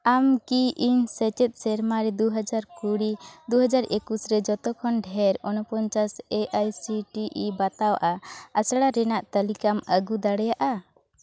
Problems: background conversations at intervals